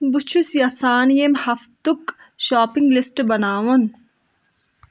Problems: background sounds at intervals